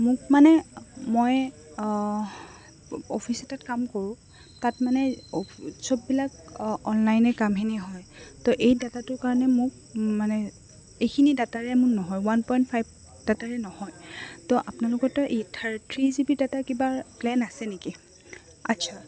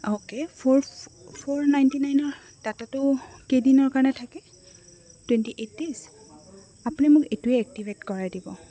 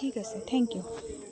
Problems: constant background noise, background conversations at intervals